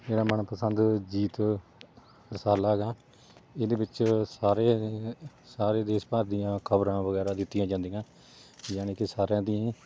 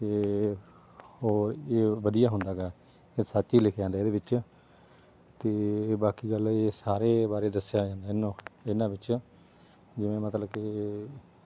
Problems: background sounds at intervals